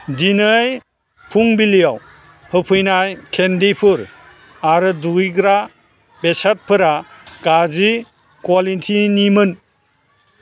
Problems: constant background noise